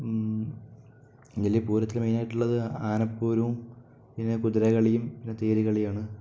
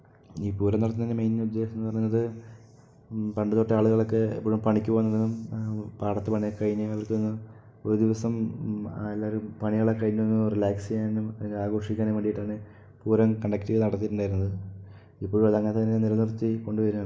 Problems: low volume